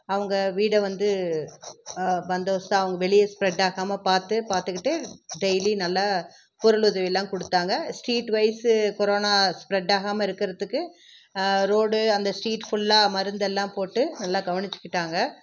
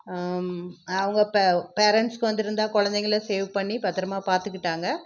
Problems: none marked